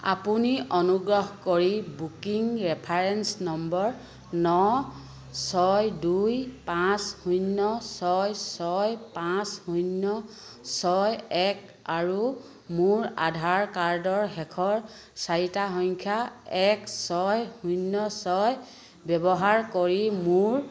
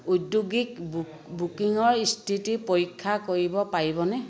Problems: none marked